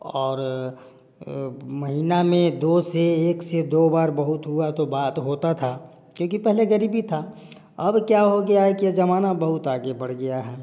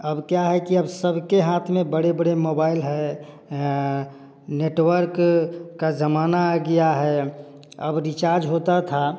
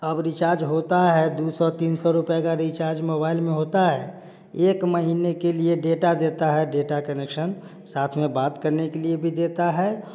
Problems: none marked